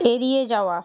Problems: none marked